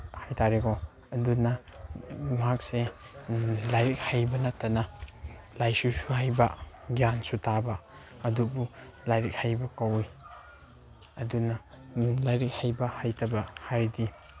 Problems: background sounds at intervals